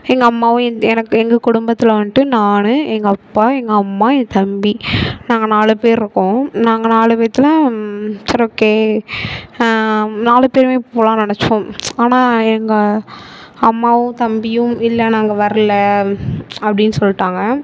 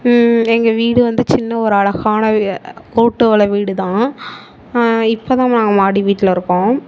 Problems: constant background noise